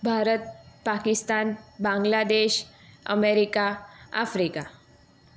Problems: none marked